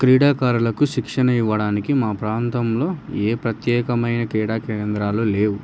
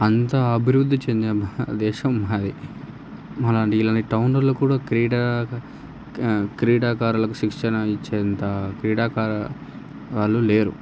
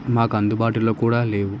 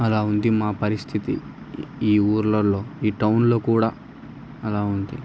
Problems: none marked